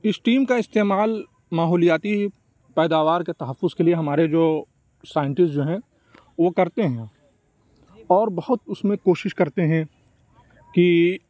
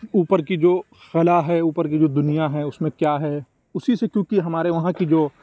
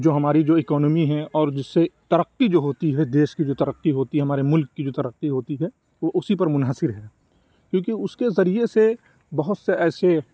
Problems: none marked